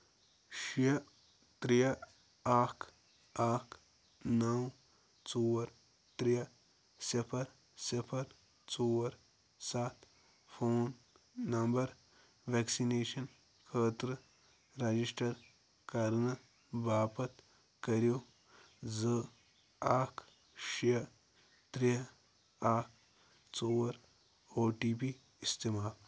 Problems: none marked